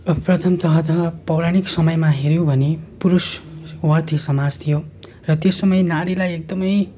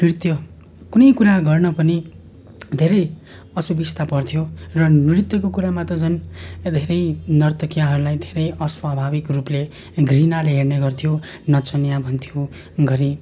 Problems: constant background noise